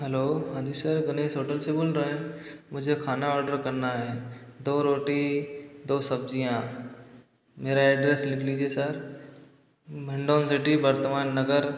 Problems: background sounds at intervals, echo